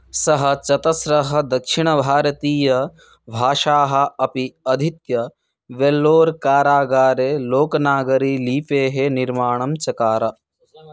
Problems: background conversations at intervals